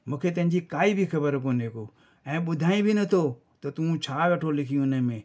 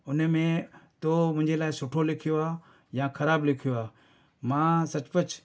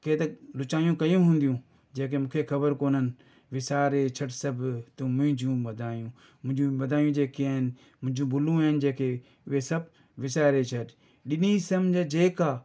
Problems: none marked